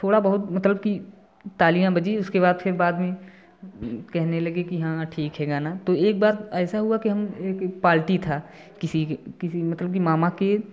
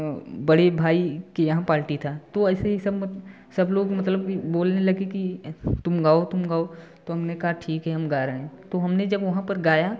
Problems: background sounds at intervals